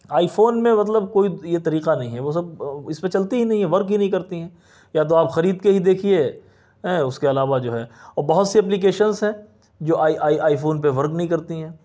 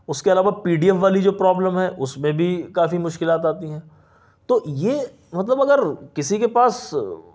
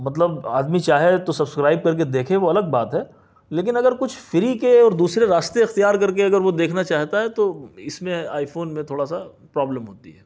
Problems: none marked